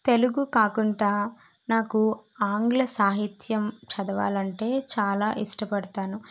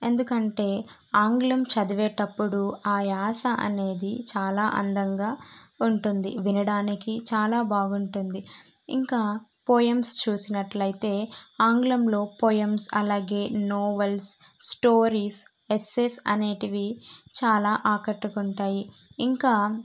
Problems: none marked